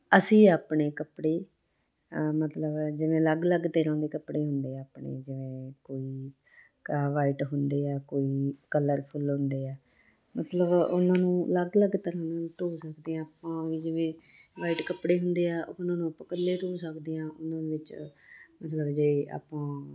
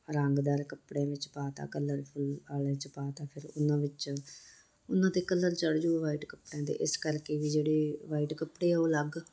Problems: constant background noise